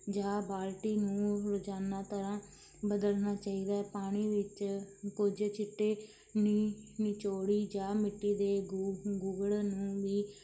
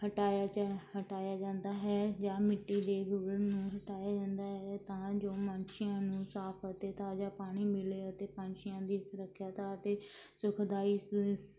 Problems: none marked